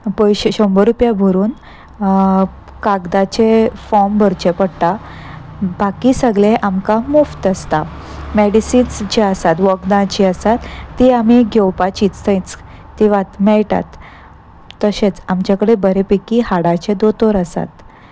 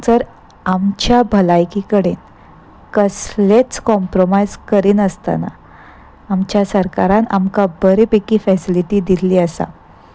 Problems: constant background noise